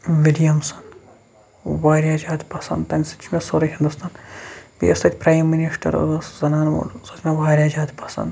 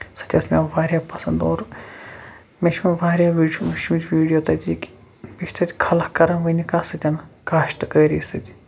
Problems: background sounds at intervals, background conversations at intervals